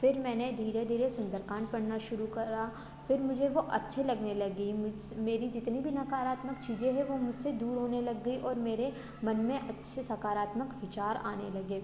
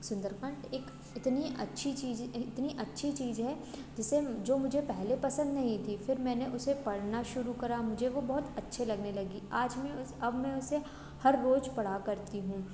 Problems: background sounds at intervals